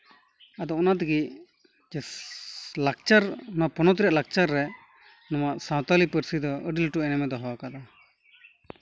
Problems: none marked